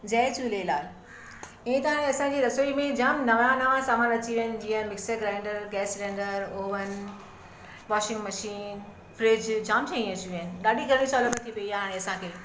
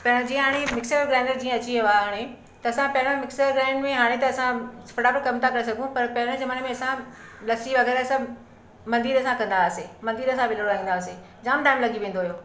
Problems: constant background noise